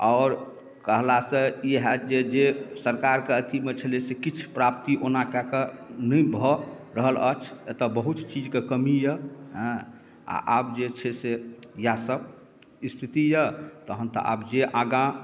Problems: none marked